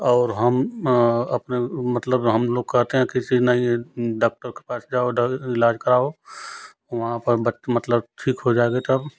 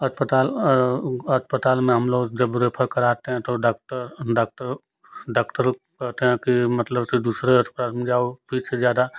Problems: constant background noise